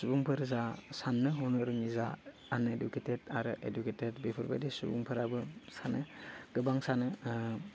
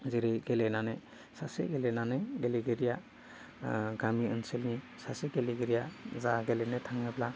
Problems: none marked